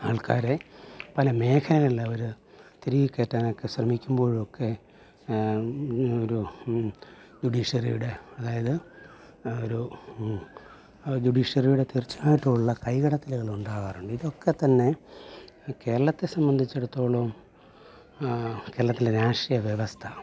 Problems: low volume